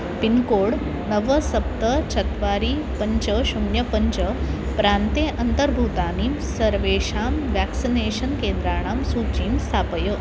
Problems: none marked